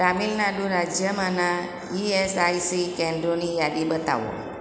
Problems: none marked